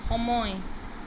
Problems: none marked